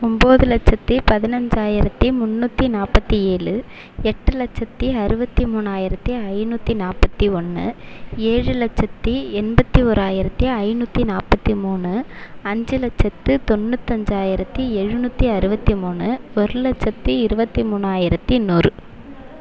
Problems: constant background noise